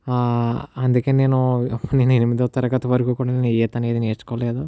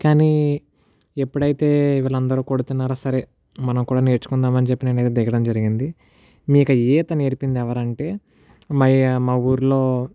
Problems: none marked